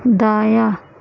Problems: constant background noise